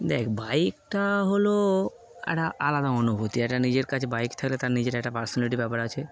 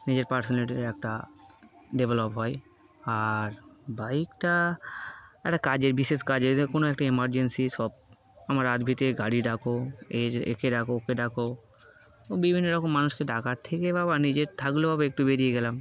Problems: constant background noise